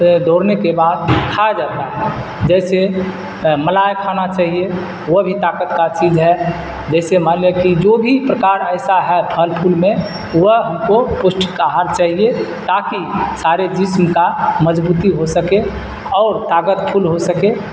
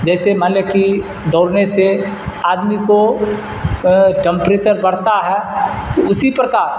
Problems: constant background noise